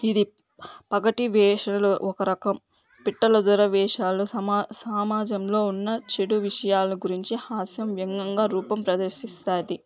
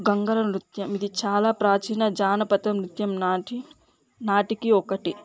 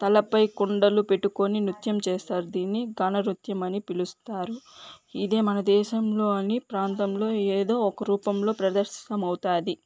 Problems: none marked